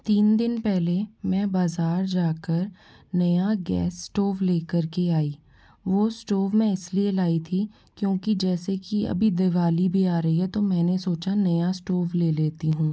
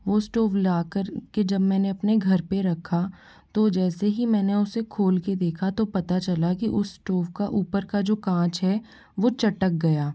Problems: background sounds at intervals